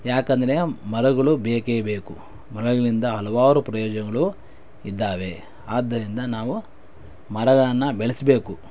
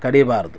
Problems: none marked